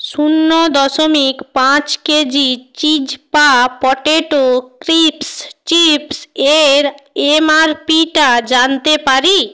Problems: constant background noise